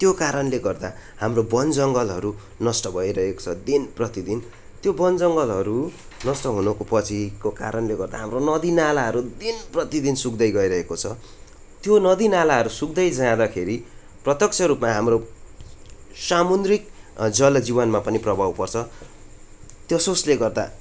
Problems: constant background noise